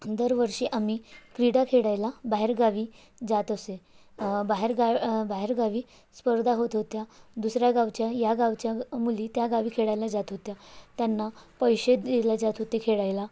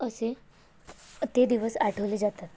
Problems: none marked